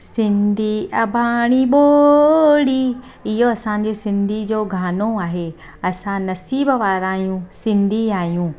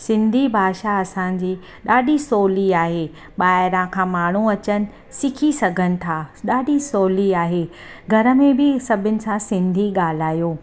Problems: constant background noise